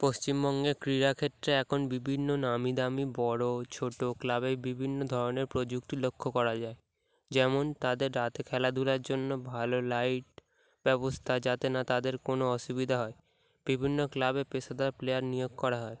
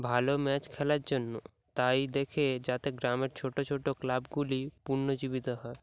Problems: none marked